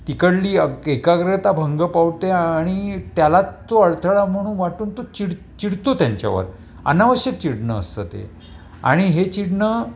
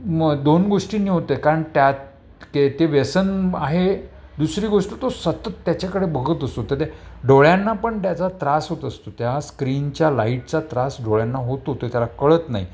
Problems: background sounds at intervals, background conversations at intervals